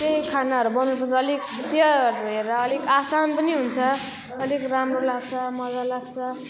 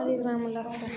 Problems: continuous background conversations